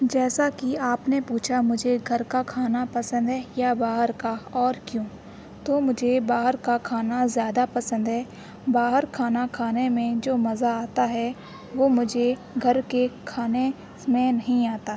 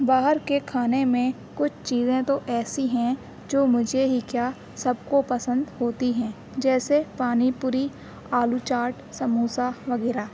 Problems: constant background noise